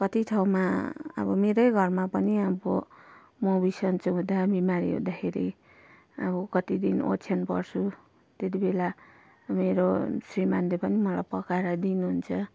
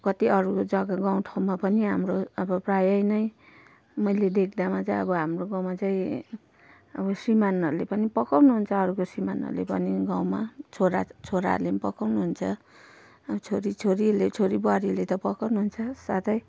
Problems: none marked